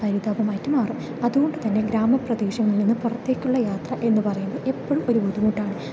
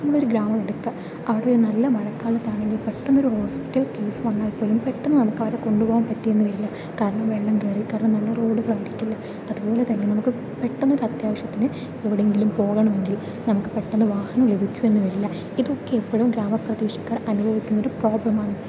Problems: constant background noise